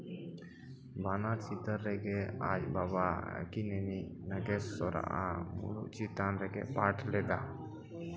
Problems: background conversations at intervals